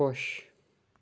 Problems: background sounds at intervals